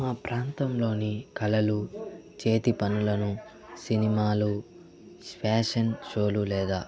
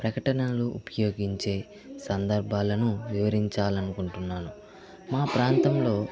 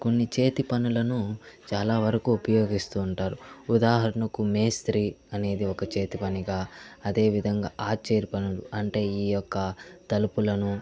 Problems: constant background noise, continuous background conversations